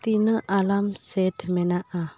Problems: background conversations at intervals